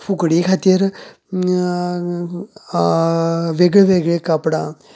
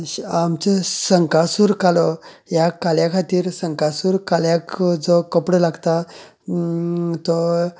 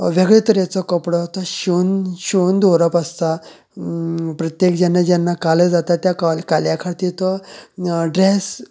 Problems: constant background noise